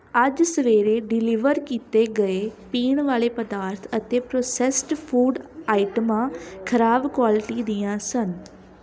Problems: constant background noise